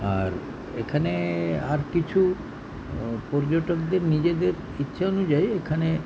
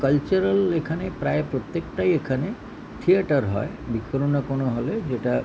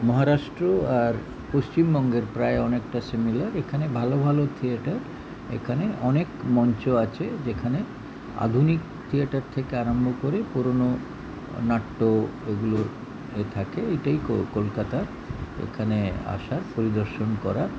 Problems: constant background noise